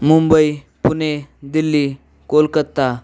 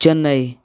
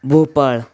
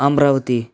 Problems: none marked